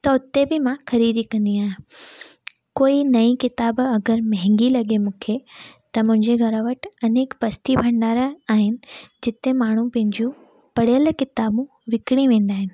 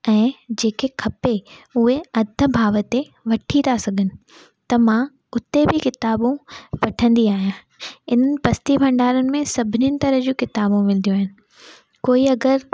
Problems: background sounds at intervals